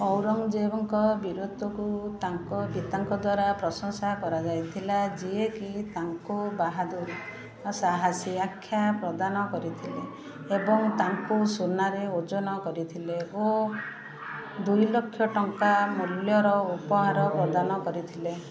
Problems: constant background noise, continuous background conversations